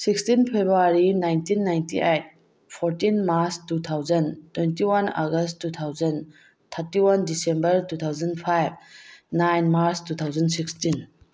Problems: background sounds at intervals